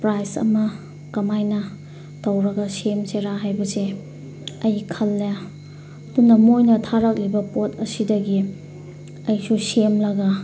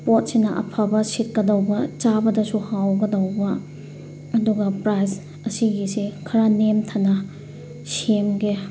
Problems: constant background noise